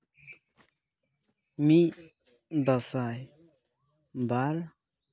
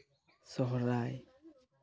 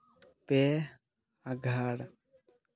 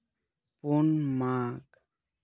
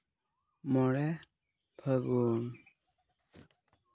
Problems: none marked